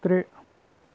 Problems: low volume